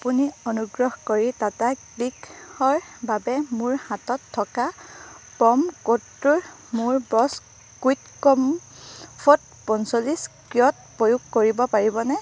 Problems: none marked